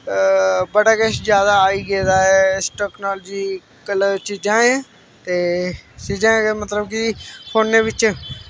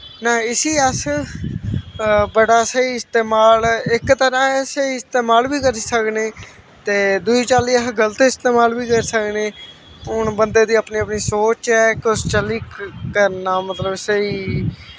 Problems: constant background noise